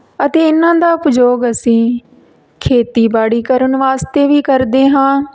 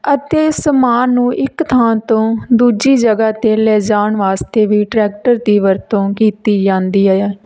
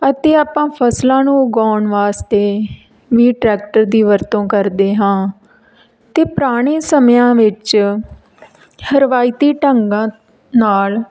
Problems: background sounds at intervals